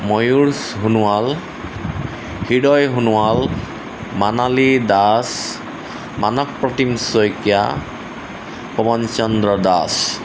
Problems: constant background noise